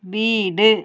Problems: none marked